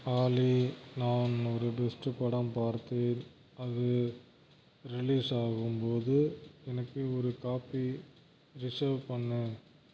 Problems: constant background noise